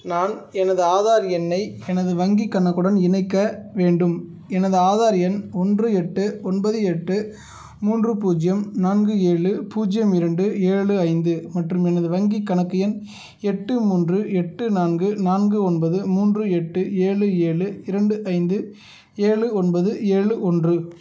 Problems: none marked